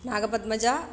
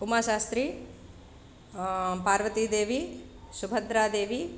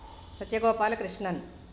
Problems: none marked